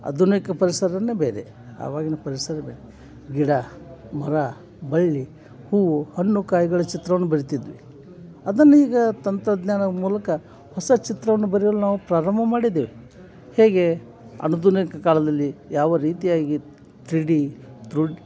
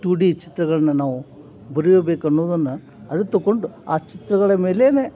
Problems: none marked